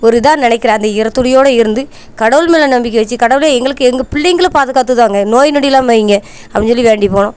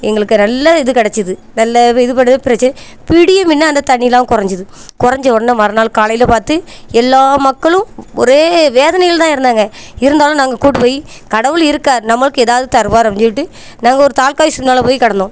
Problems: none marked